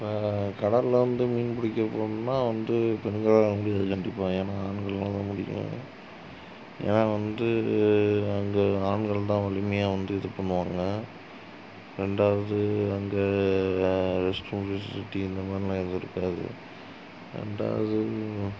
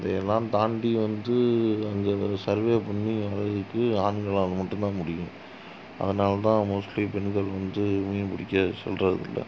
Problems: low volume